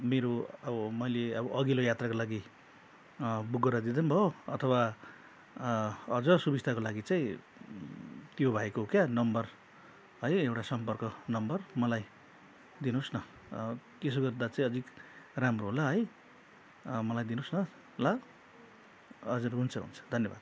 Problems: none marked